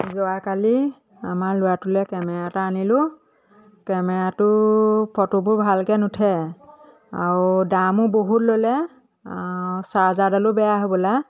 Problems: none marked